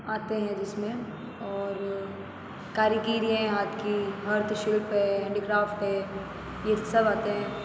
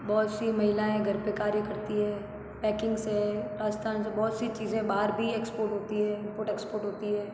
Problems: none marked